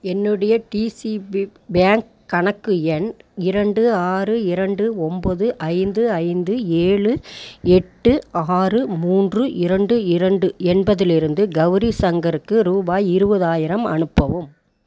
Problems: none marked